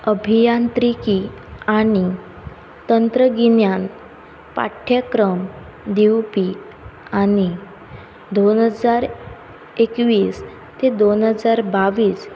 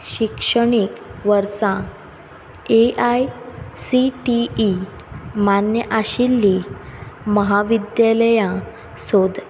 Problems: background sounds at intervals